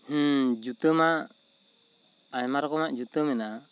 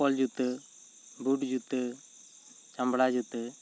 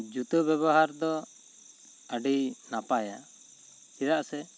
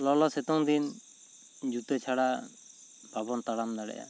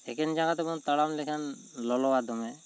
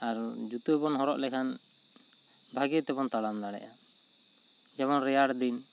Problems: constant background noise